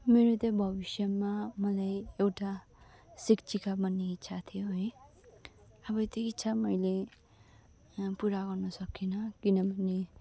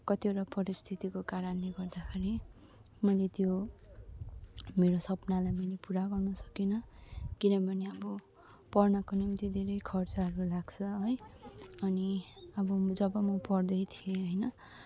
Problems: low volume